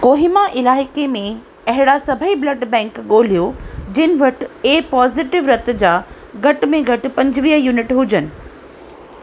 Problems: constant background noise, echo